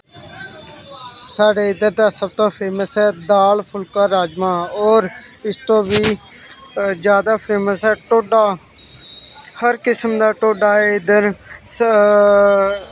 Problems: none marked